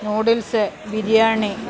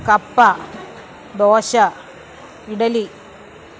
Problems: constant background noise